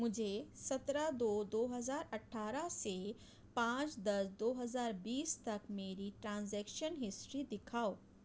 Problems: low volume